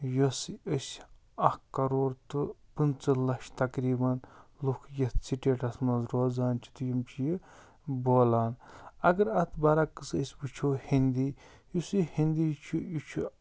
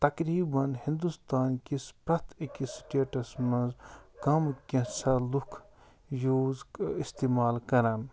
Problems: none marked